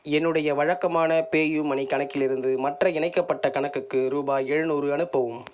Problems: none marked